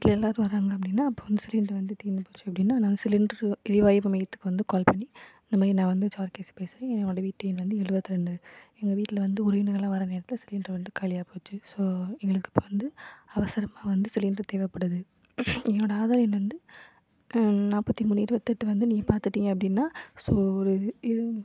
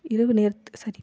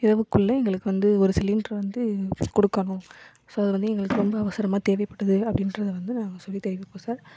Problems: background sounds at intervals